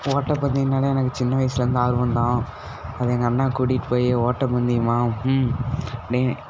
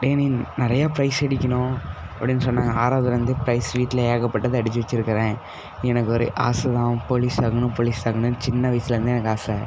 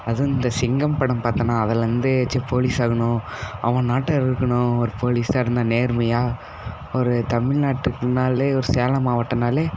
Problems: constant background noise